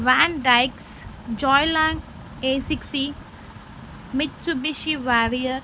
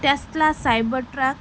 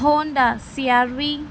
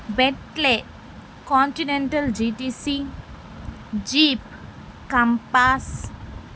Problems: none marked